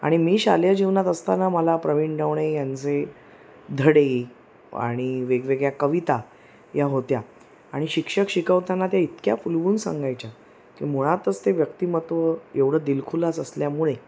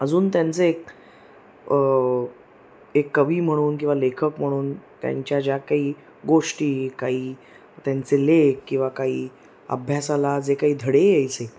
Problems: none marked